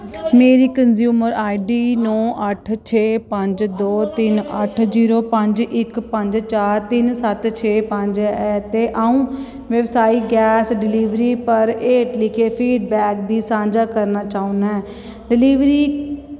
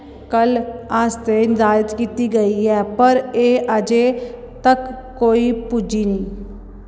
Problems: constant background noise